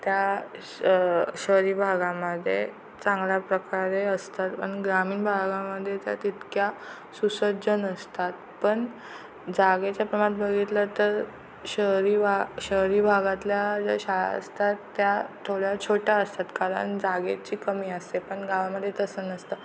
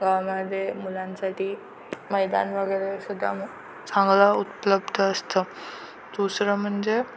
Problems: constant background noise